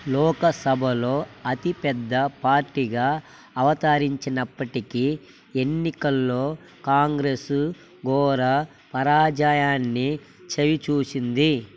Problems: constant background noise